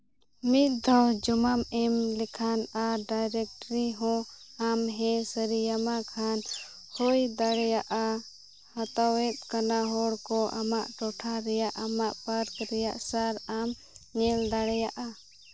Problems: constant background noise